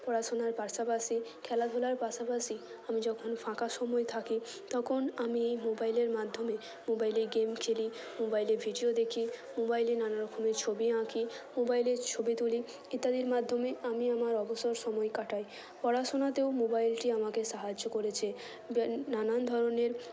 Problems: constant background noise